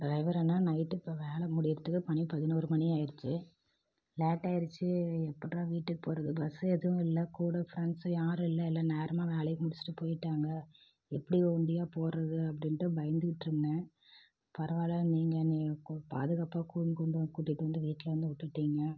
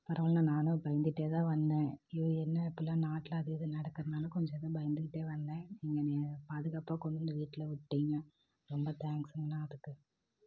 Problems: low volume